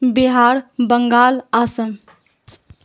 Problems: none marked